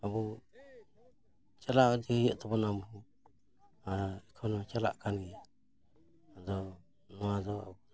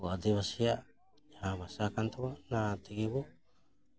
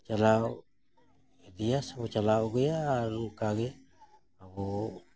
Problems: none marked